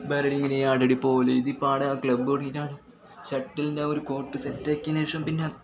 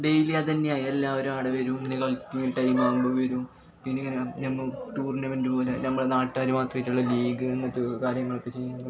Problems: background sounds at intervals, background conversations at intervals, low volume